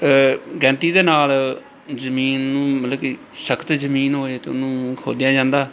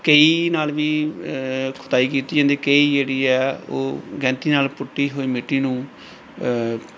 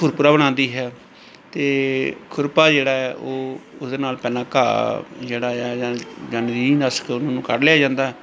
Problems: background sounds at intervals, background conversations at intervals